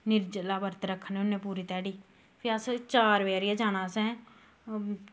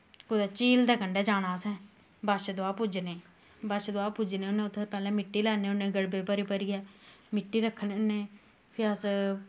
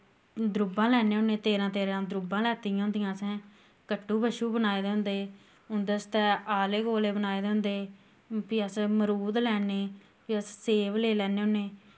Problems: none marked